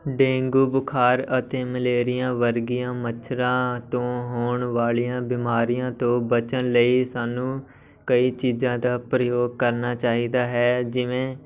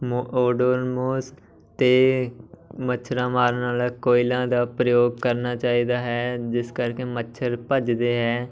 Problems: background sounds at intervals, continuous background conversations